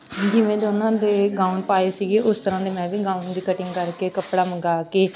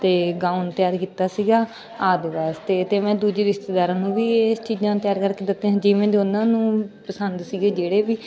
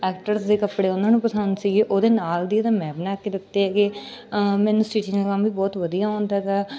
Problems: background sounds at intervals, continuous background conversations